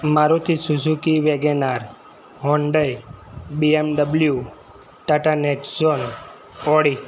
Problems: constant background noise